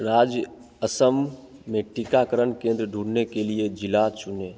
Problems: constant background noise, echo